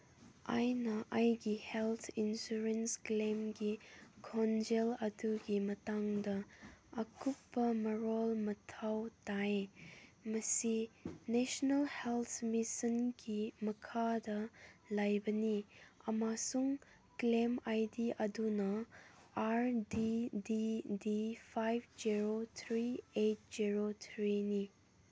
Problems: none marked